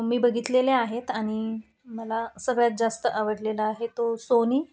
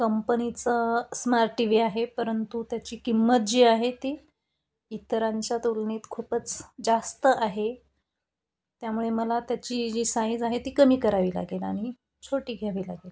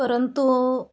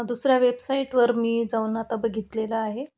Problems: none marked